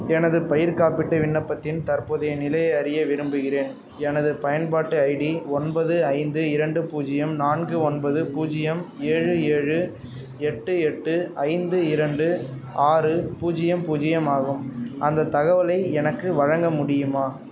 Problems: background conversations at intervals